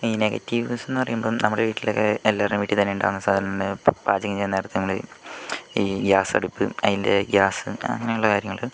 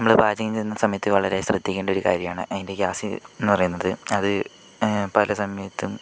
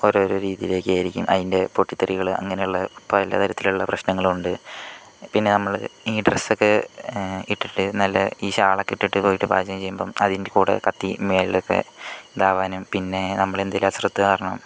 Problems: none marked